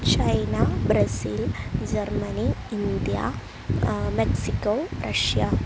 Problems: constant background noise